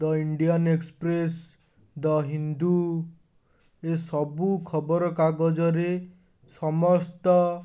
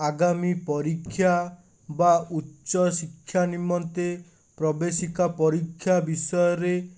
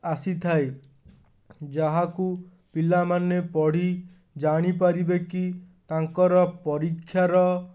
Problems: none marked